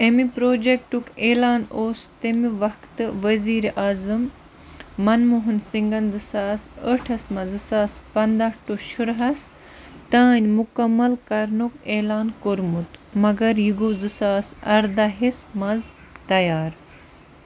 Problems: background sounds at intervals